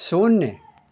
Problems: constant background noise, continuous background conversations